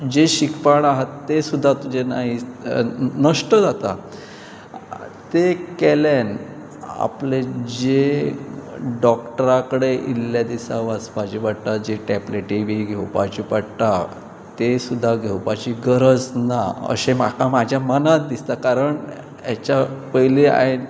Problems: constant background noise, background conversations at intervals